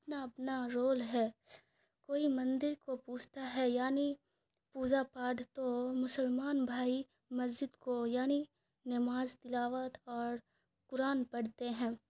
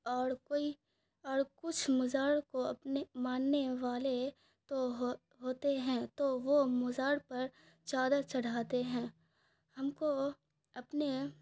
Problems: none marked